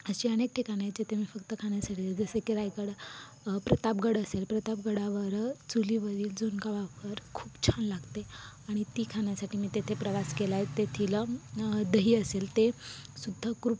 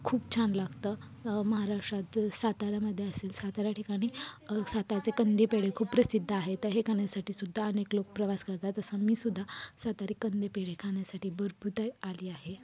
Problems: none marked